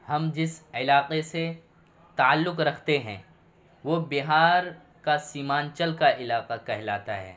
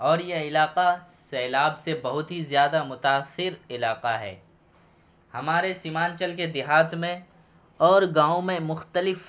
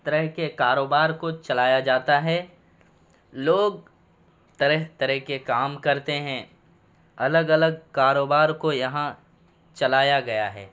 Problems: background sounds at intervals